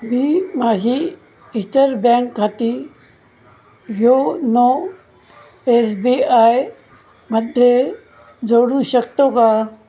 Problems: none marked